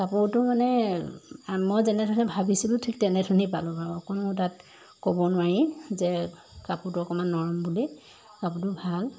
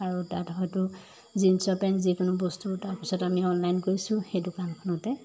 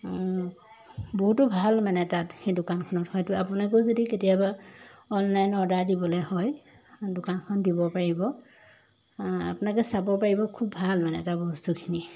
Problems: none marked